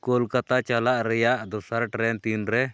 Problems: none marked